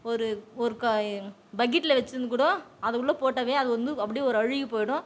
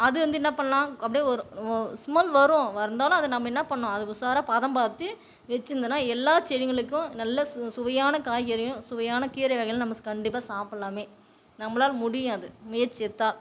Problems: none marked